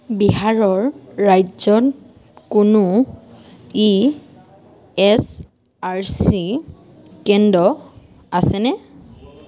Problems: constant background noise